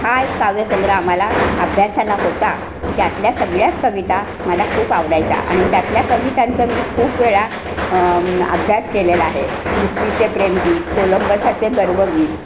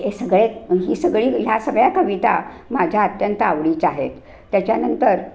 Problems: background sounds at intervals